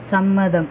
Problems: none marked